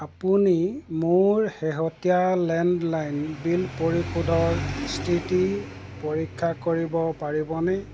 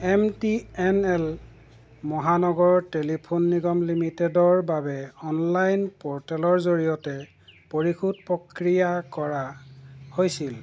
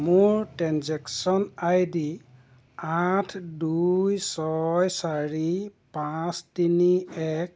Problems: constant background noise